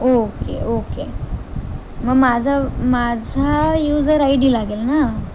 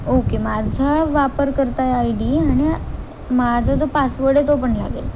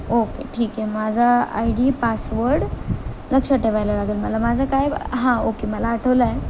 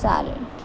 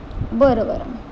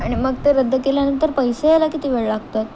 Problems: constant background noise